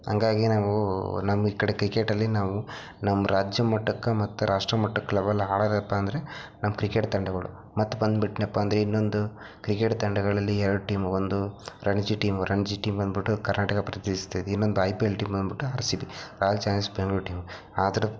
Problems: low volume